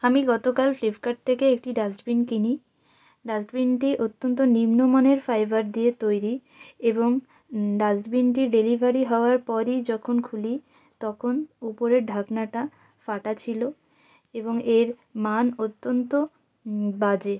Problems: background sounds at intervals